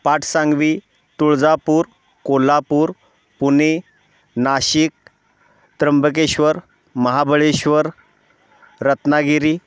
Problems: none marked